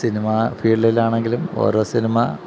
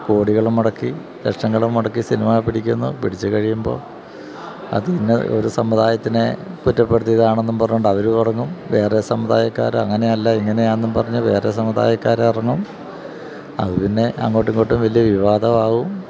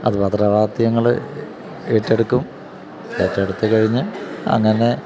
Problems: constant background noise